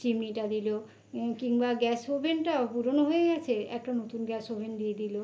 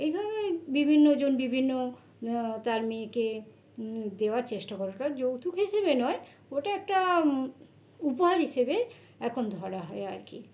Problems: constant background noise